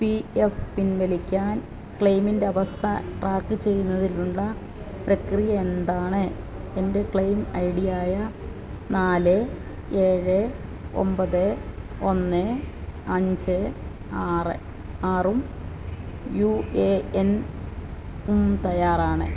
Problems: low volume